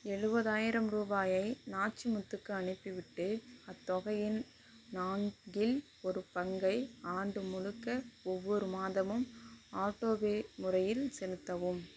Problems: low volume